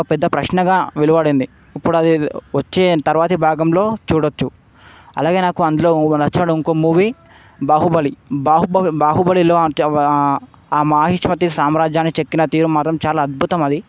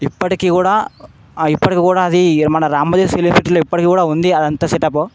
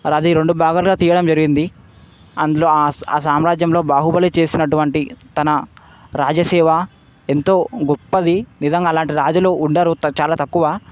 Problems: constant background noise